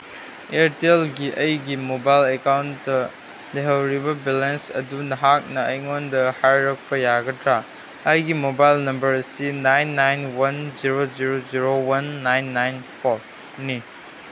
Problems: constant background noise